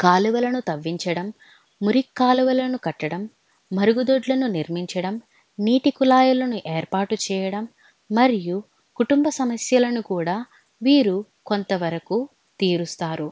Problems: none marked